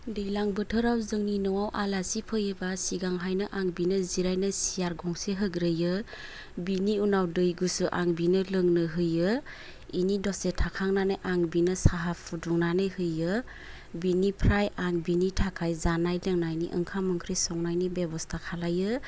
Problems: low volume